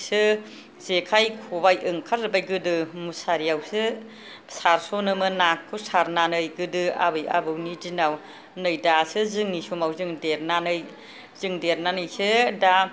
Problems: background sounds at intervals